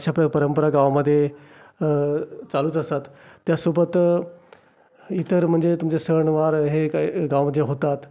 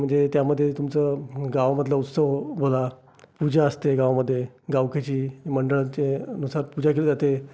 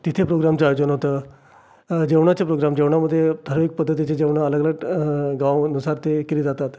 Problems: constant background noise, background conversations at intervals